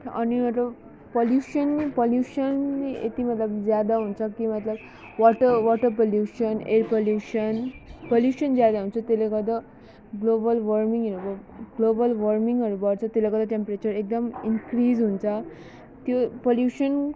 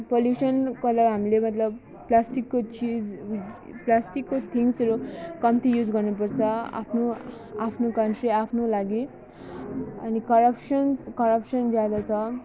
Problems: none marked